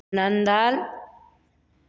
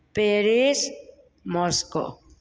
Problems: constant background noise